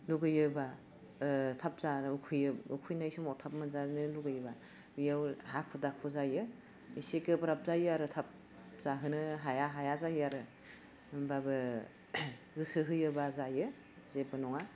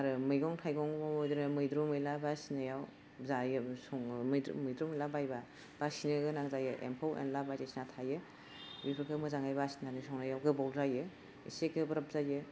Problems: none marked